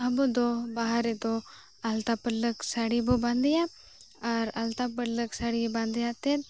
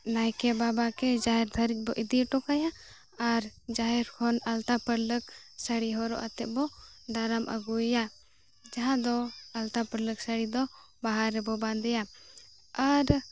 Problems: none marked